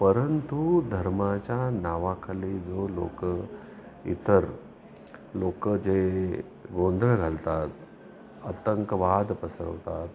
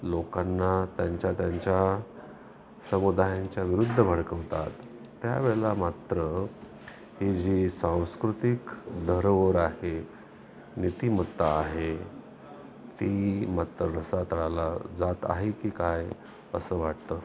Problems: constant background noise, continuous background conversations